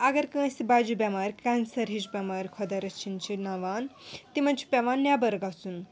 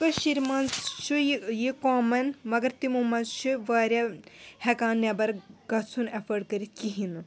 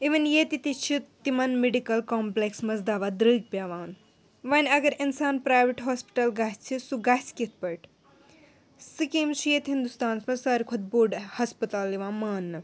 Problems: background sounds at intervals